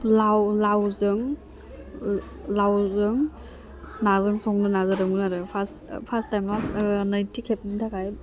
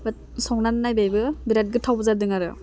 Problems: constant background noise